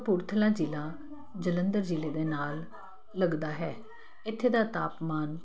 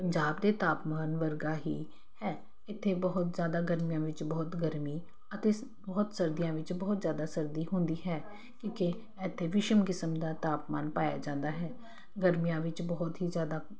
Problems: constant background noise